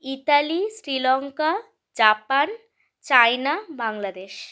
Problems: none marked